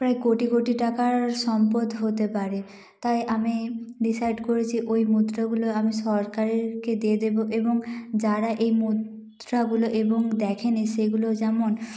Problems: echo